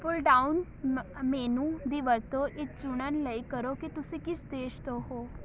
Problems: none marked